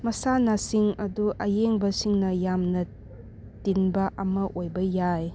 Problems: background sounds at intervals